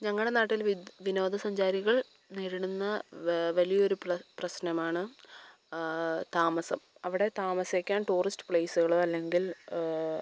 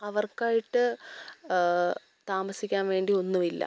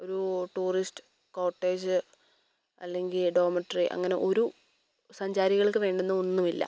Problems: background sounds at intervals